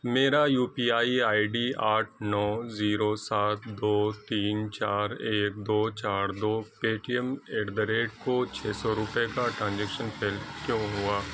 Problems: constant background noise